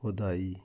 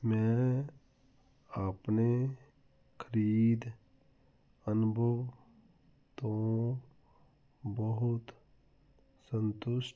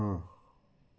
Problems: none marked